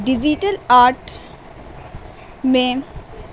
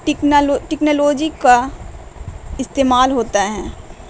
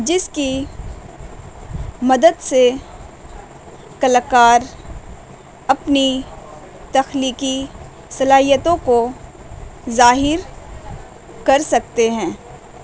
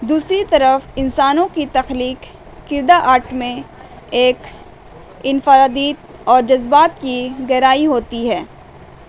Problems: constant background noise